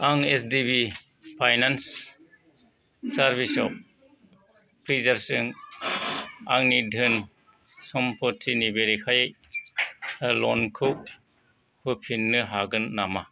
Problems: none marked